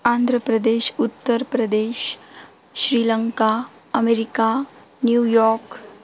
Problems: constant background noise